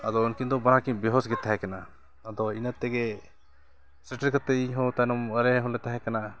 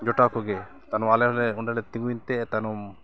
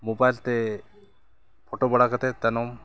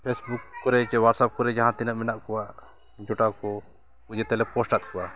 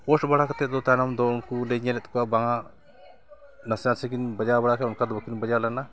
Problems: continuous background conversations